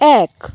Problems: none marked